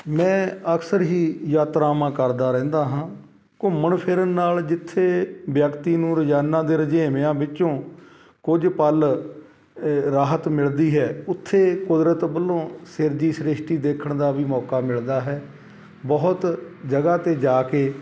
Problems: none marked